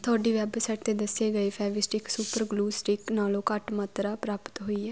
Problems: constant background noise